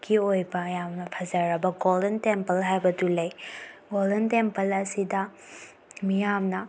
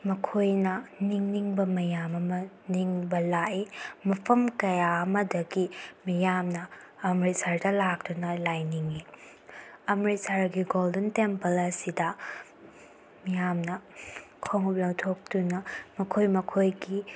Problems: none marked